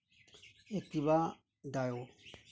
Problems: low volume